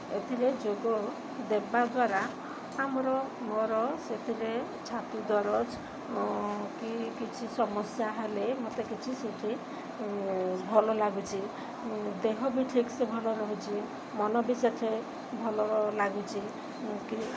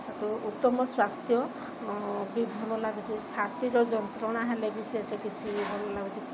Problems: constant background noise